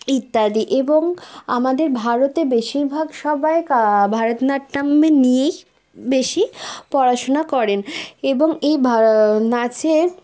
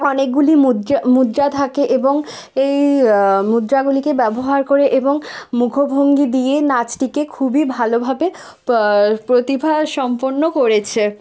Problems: none marked